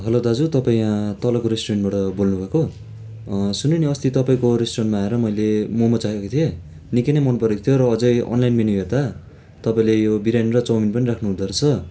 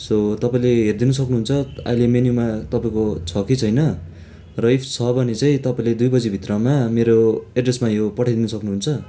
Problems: constant background noise